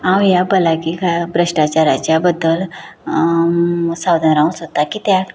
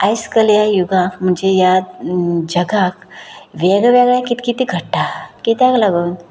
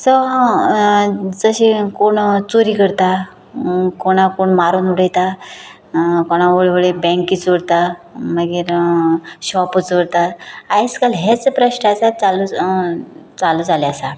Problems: none marked